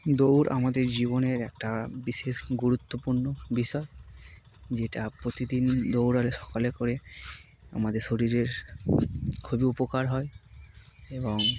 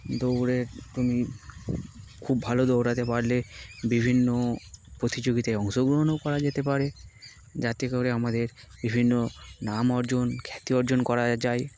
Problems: constant background noise